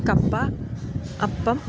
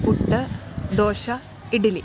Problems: none marked